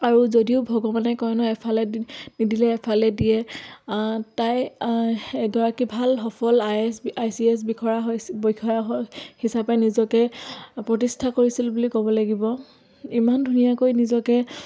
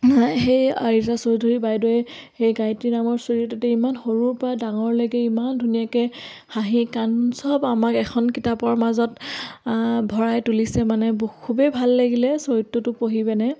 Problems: background sounds at intervals